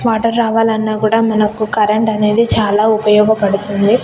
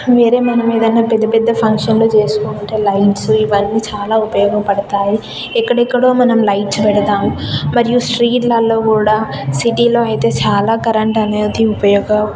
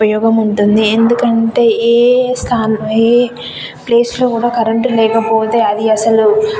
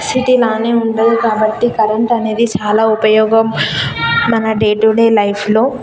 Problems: constant background noise, background conversations at intervals